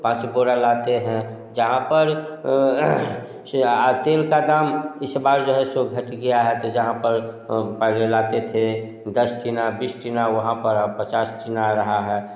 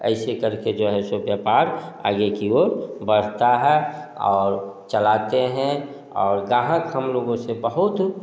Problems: background sounds at intervals, echo